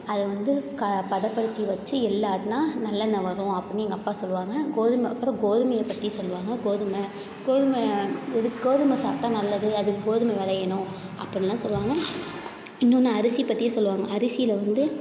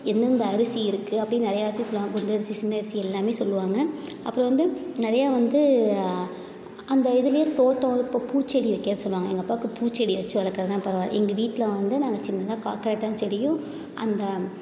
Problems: constant background noise